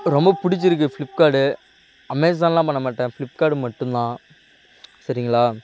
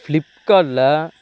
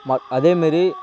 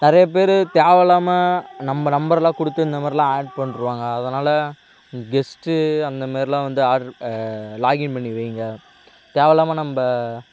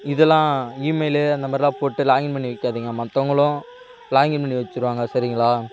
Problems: constant background noise